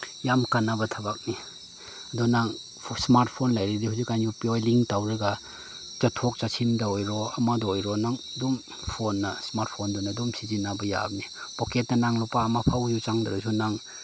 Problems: none marked